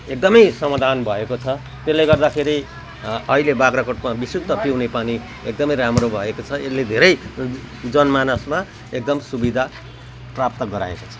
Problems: none marked